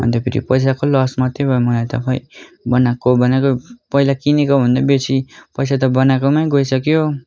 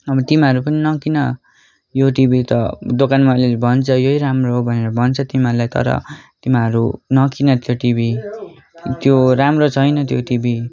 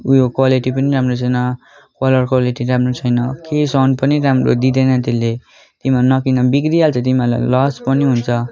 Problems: continuous background conversations